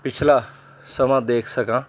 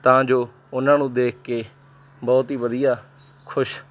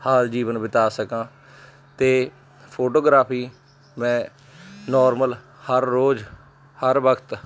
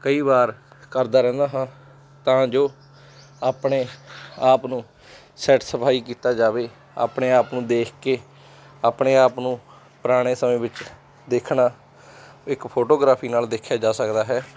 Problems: background sounds at intervals, background conversations at intervals